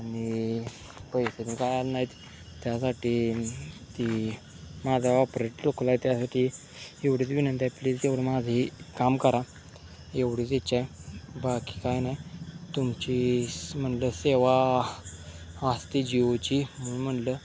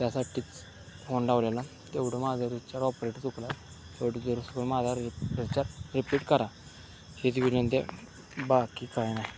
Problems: constant background noise, background conversations at intervals